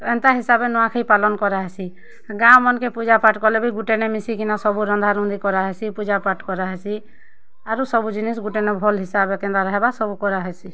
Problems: constant background noise